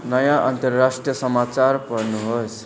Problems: constant background noise